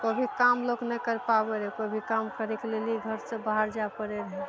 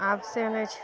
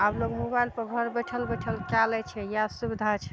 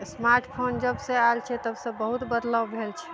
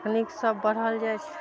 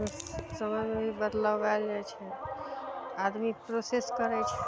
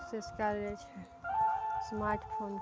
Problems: background sounds at intervals